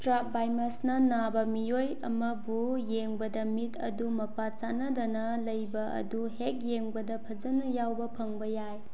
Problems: none marked